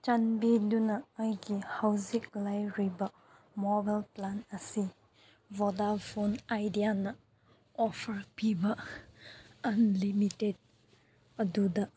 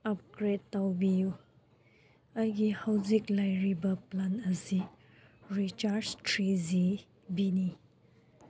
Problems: none marked